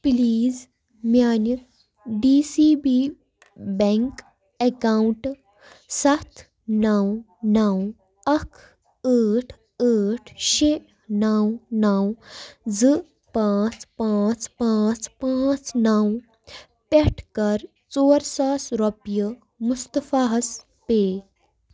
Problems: background sounds at intervals